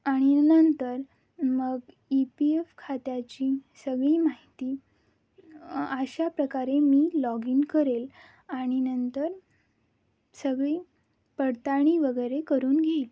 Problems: background sounds at intervals